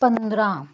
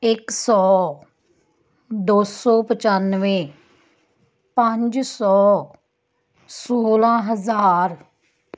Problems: background conversations at intervals